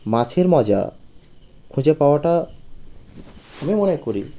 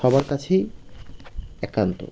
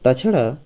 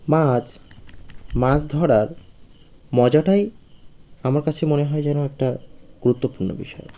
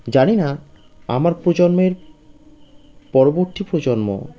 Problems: none marked